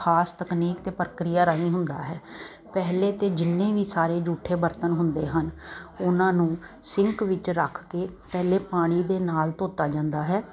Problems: none marked